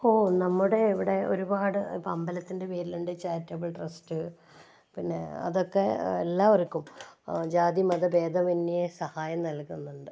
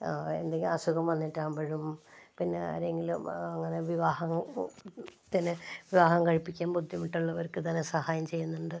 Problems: low volume